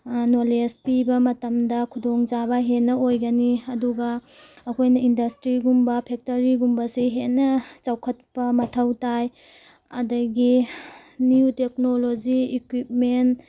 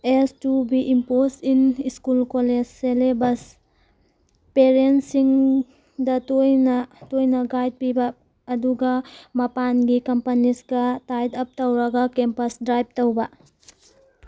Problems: background sounds at intervals